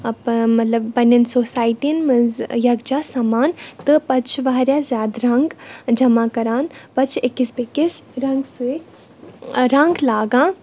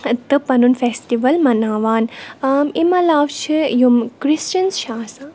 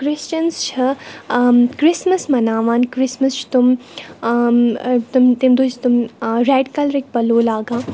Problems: none marked